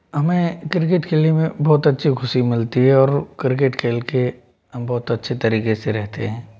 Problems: background sounds at intervals